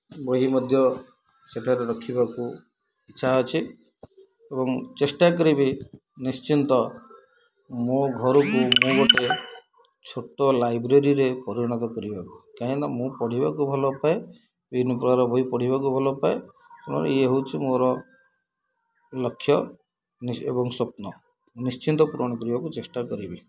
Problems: background sounds at intervals, low volume